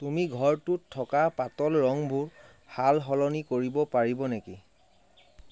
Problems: constant background noise